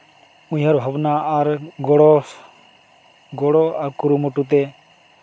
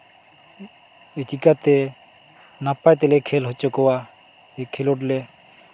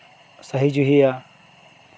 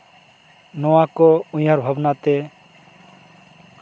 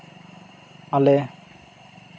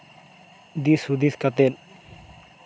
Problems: constant background noise, background conversations at intervals